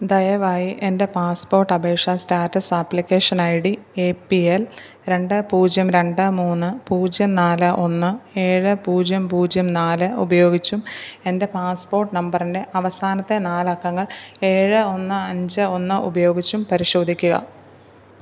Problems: none marked